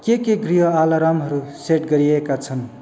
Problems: constant background noise